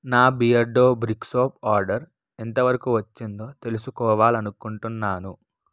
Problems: none marked